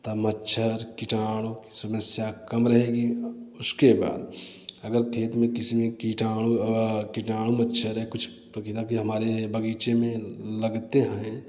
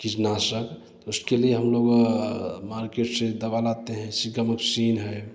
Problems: none marked